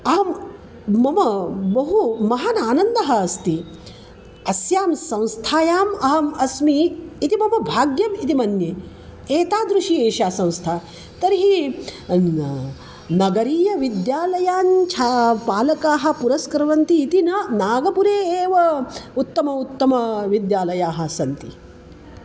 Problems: constant background noise